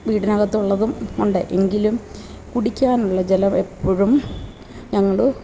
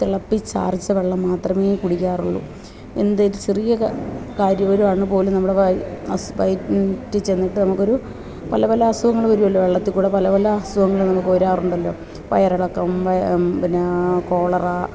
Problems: constant background noise, low volume